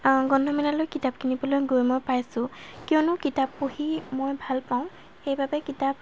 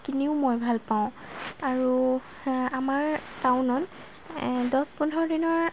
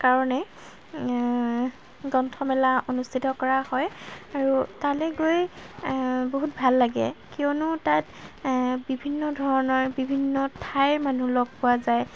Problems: constant background noise